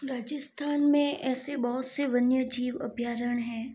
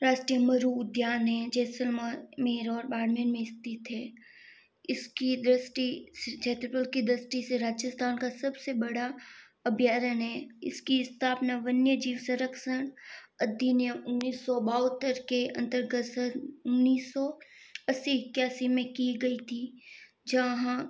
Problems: background sounds at intervals